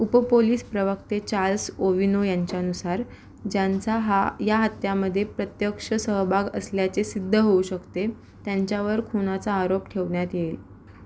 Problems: none marked